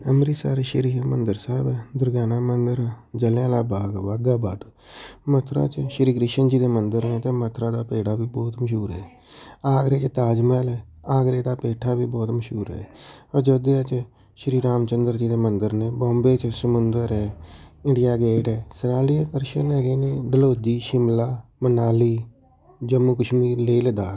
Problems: background conversations at intervals